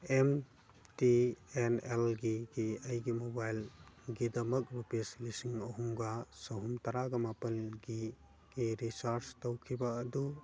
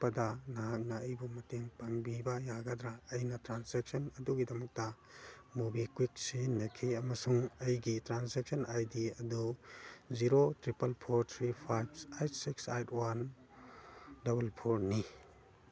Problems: background sounds at intervals, background conversations at intervals